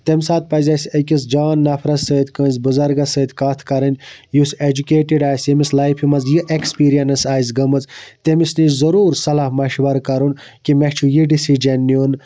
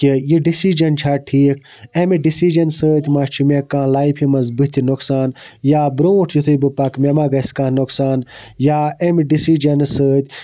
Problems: none marked